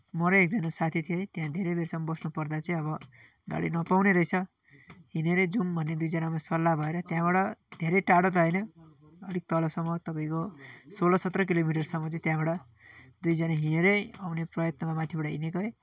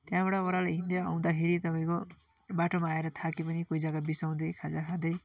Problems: none marked